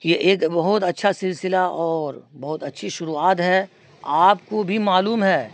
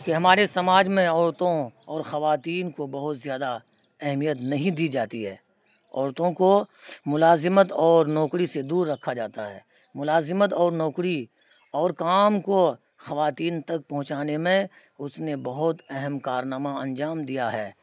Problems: constant background noise